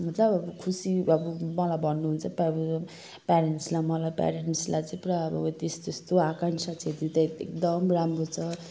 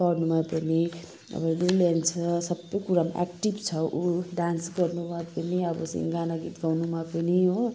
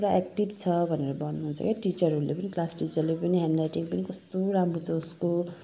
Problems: none marked